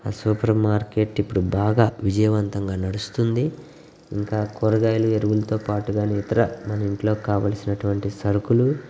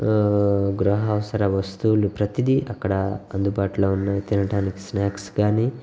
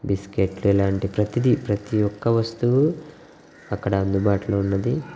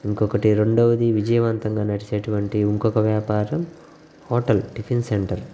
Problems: background sounds at intervals